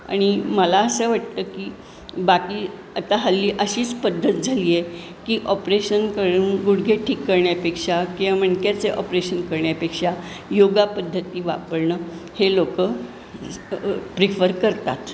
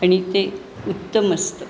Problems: constant background noise